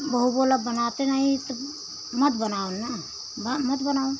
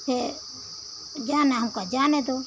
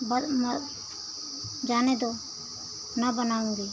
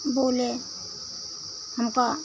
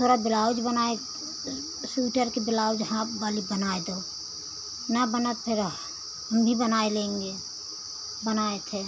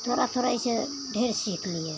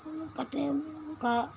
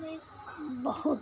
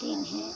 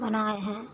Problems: constant background noise